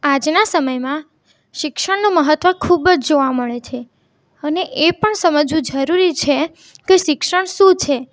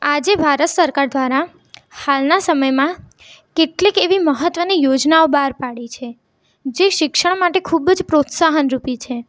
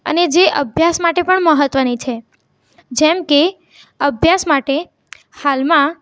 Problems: none marked